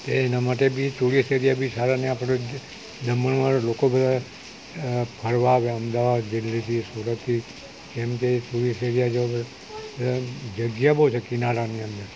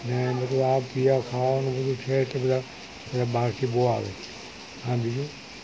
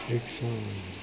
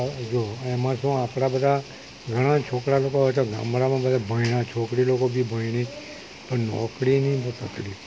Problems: constant background noise